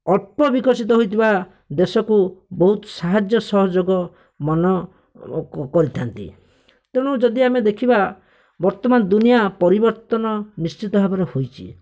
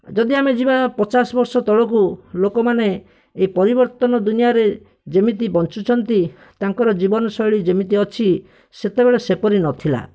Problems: none marked